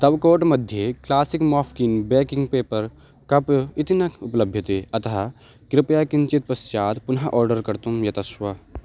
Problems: none marked